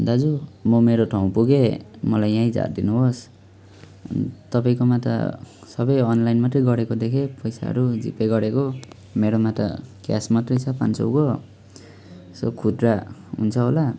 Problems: none marked